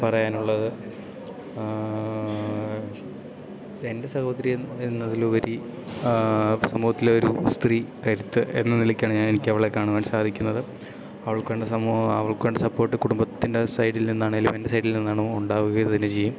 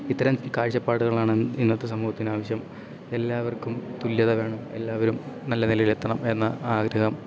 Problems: none marked